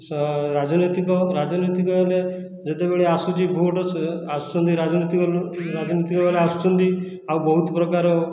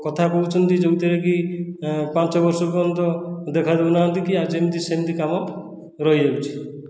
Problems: background sounds at intervals